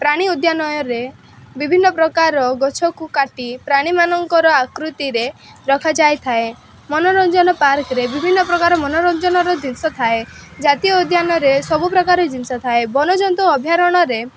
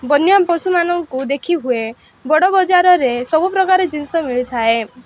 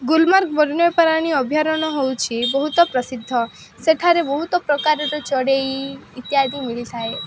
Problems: constant background noise